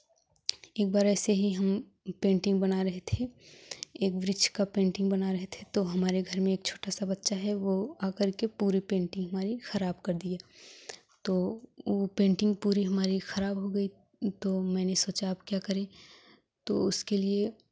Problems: none marked